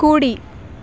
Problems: constant background noise